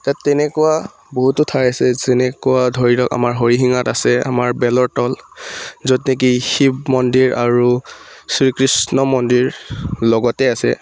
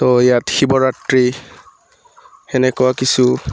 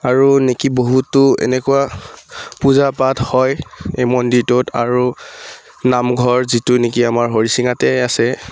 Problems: background sounds at intervals